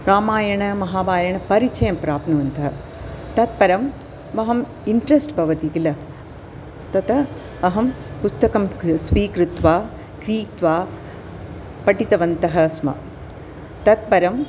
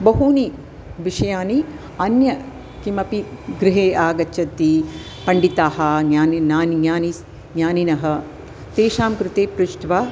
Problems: constant background noise